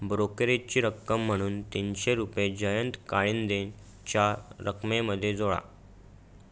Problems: none marked